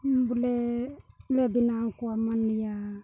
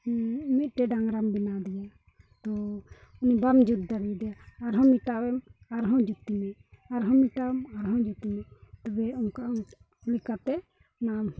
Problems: background sounds at intervals